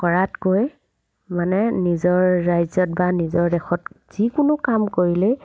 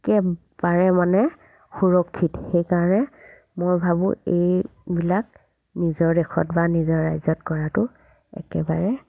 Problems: background sounds at intervals